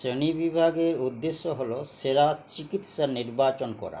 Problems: constant background noise